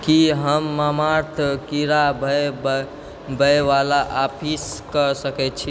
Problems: constant background noise